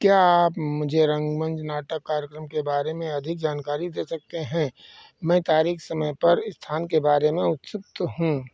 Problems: constant background noise